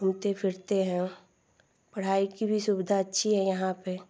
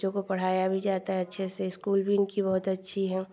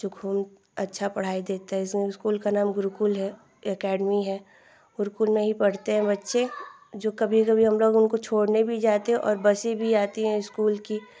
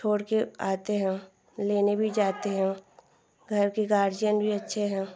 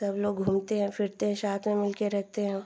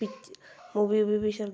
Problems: background sounds at intervals, background conversations at intervals